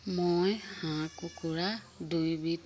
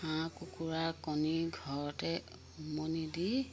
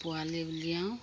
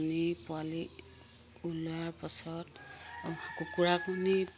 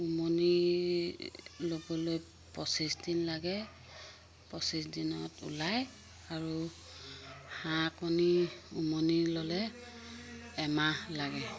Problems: constant background noise